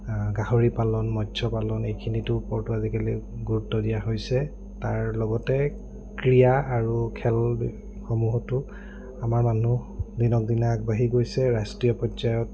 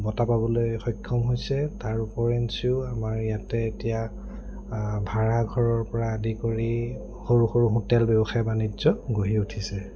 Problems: low volume